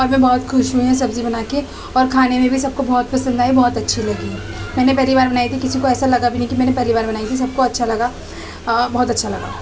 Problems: constant background noise, continuous background conversations